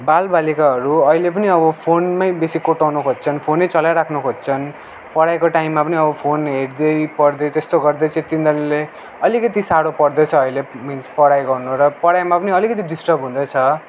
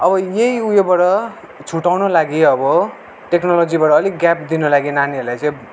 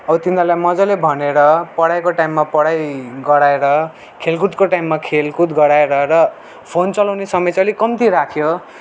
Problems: none marked